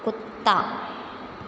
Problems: none marked